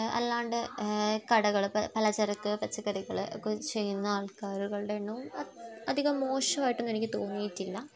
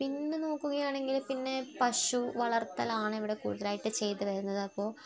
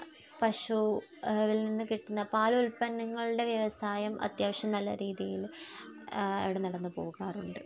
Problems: background sounds at intervals, low volume